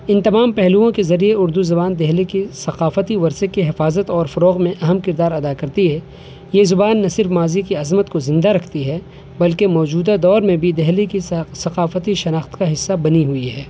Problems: constant background noise